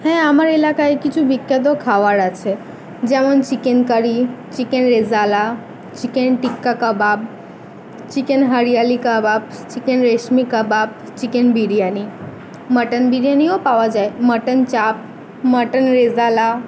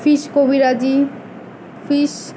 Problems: background sounds at intervals, background conversations at intervals